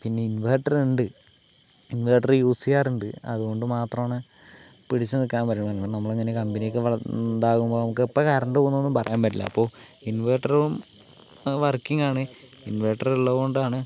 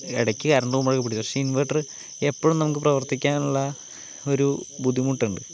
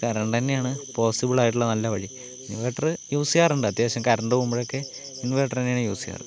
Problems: background conversations at intervals, low volume